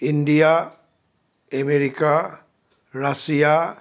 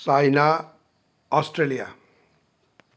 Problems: none marked